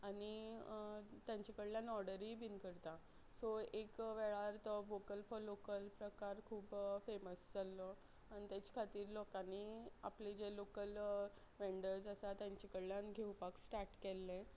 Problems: none marked